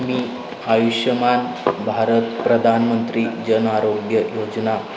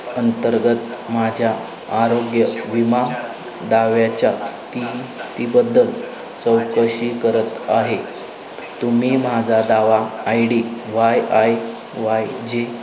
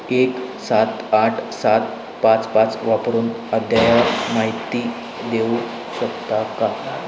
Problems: constant background noise, continuous background conversations